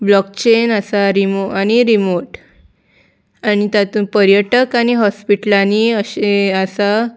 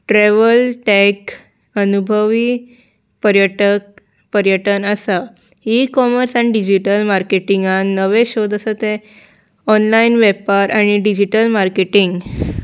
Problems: background sounds at intervals